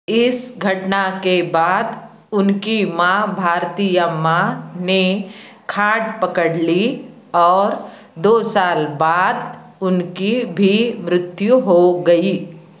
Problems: constant background noise